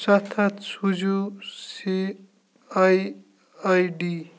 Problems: background sounds at intervals, low volume